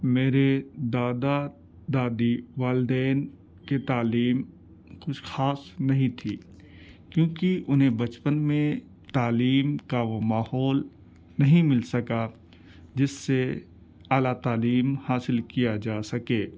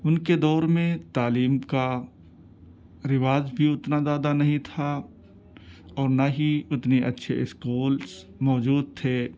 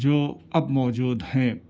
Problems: none marked